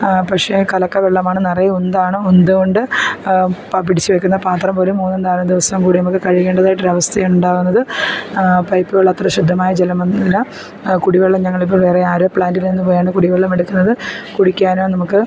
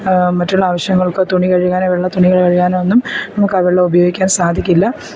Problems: none marked